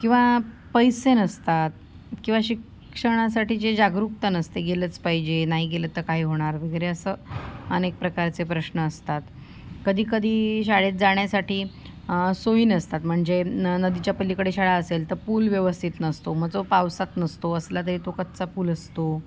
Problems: constant background noise, background conversations at intervals